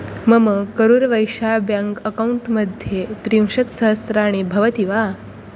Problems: none marked